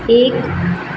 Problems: constant background noise